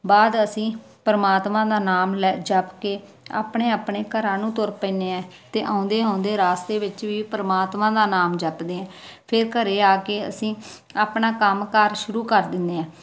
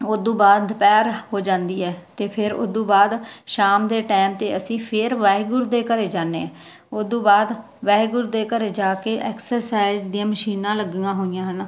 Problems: none marked